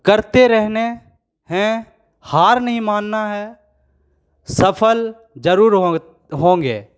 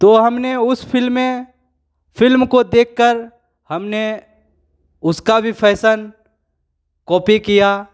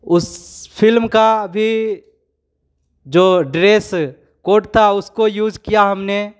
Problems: none marked